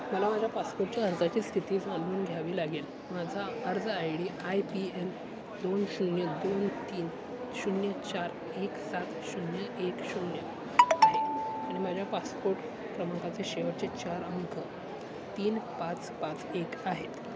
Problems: constant background noise, continuous background conversations